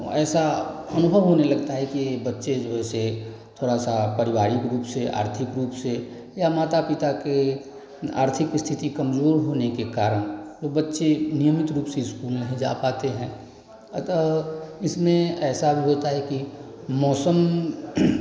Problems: none marked